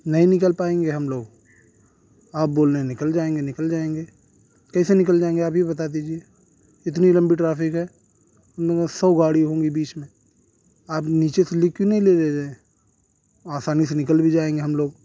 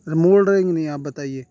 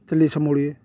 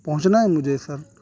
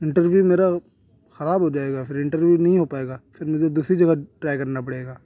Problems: constant background noise